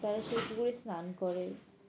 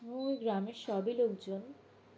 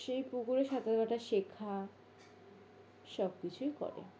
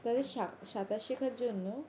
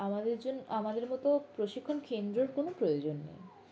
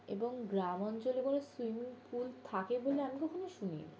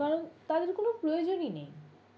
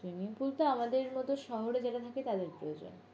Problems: constant background noise, background conversations at intervals